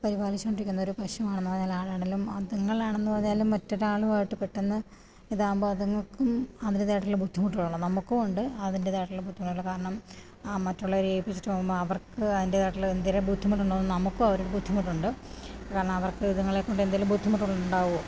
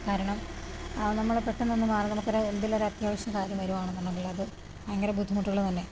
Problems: low volume